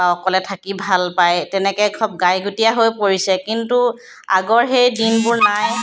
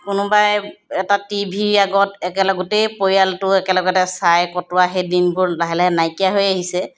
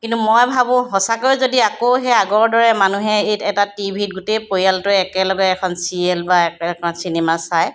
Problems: background sounds at intervals